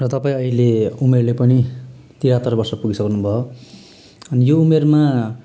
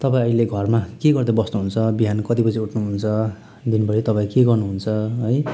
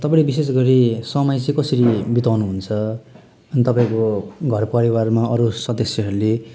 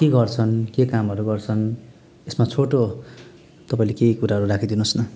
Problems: background sounds at intervals